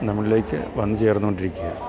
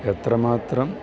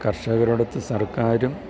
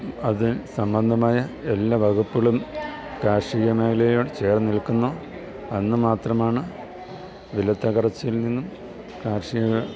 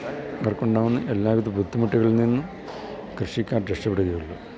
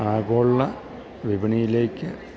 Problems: continuous background conversations, low volume